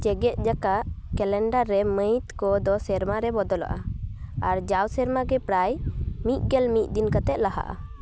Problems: background sounds at intervals, background conversations at intervals